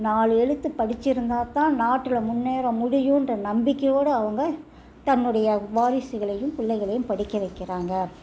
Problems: low volume